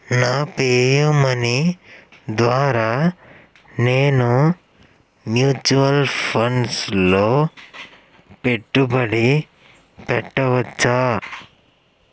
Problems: background sounds at intervals